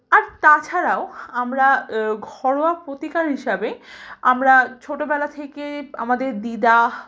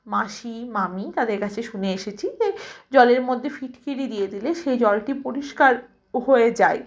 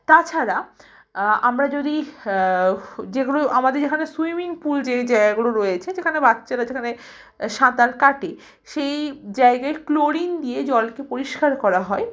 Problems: background sounds at intervals, background conversations at intervals